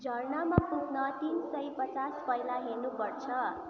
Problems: continuous background conversations